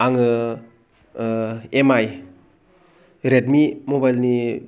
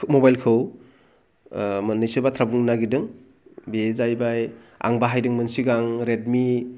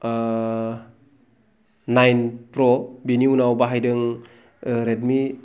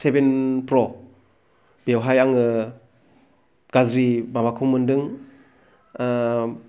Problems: low volume